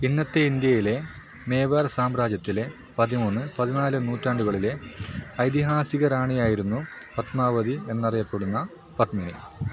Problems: constant background noise